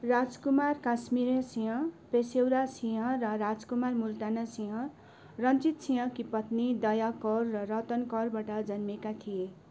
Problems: constant background noise